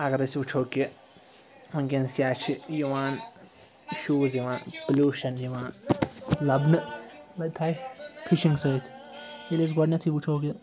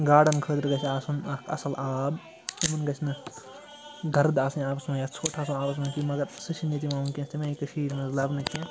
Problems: constant background noise